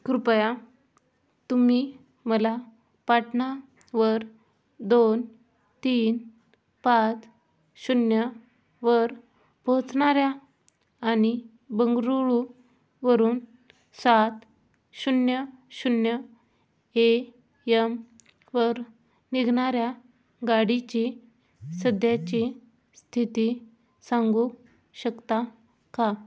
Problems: background sounds at intervals